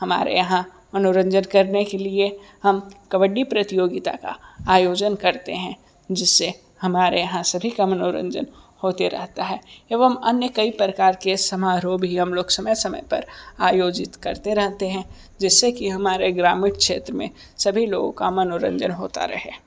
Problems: none marked